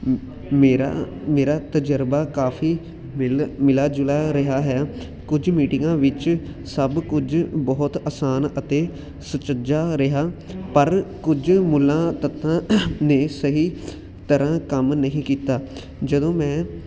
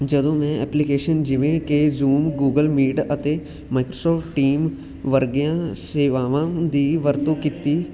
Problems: constant background noise